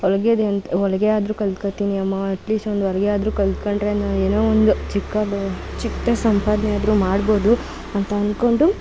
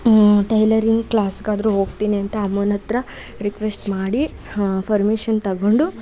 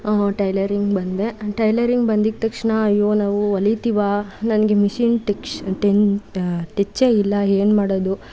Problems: background sounds at intervals